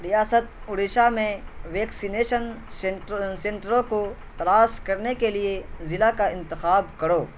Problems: constant background noise